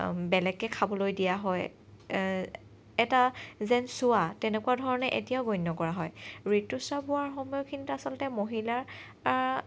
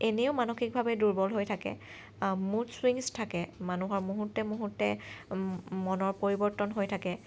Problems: none marked